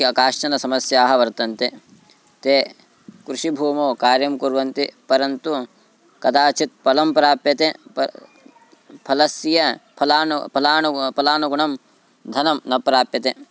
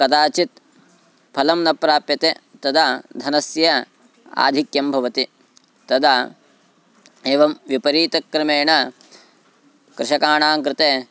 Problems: constant background noise